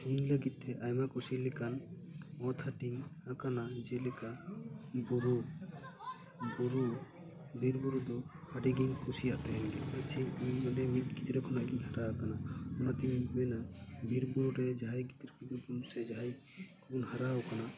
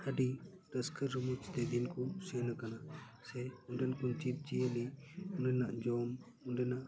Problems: background sounds at intervals, low volume